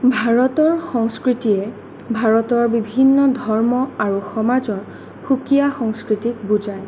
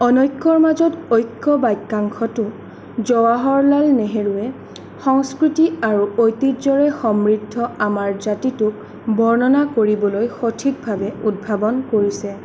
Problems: none marked